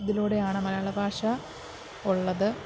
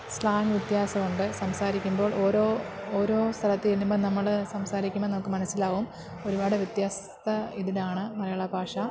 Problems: constant background noise, low volume